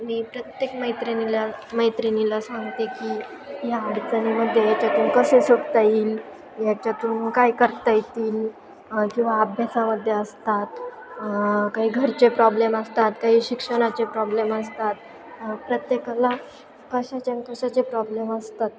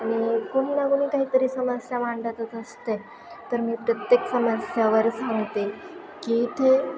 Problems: constant background noise, continuous background conversations